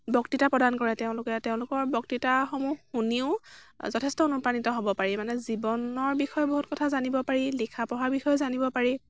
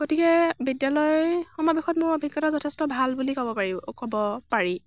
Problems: constant background noise